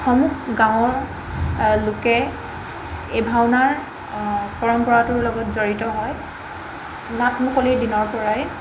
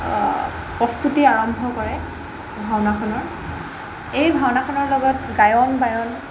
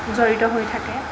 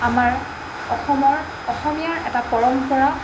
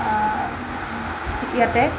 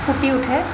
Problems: constant background noise